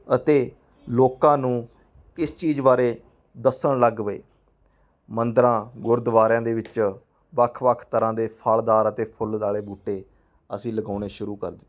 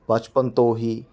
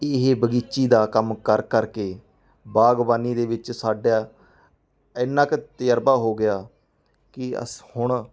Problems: background conversations at intervals